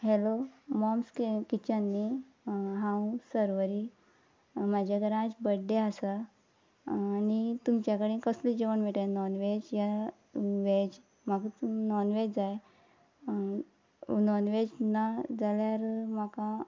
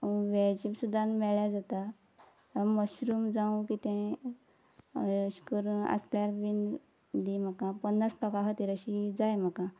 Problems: constant background noise